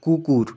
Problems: constant background noise, background conversations at intervals